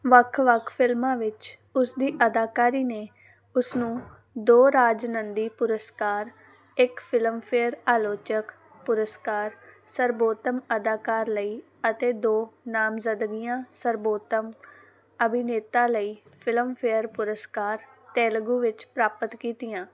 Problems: background sounds at intervals